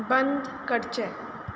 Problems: constant background noise